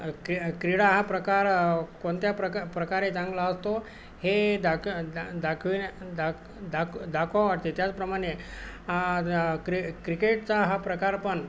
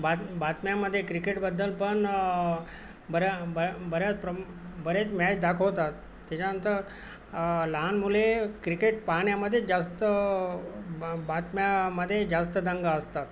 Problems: constant background noise